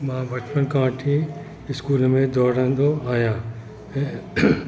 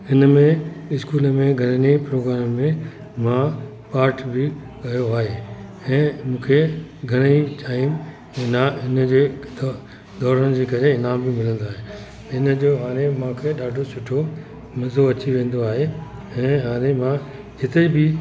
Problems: constant background noise, echo